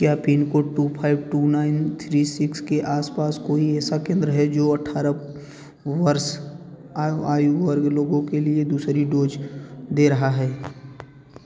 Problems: constant background noise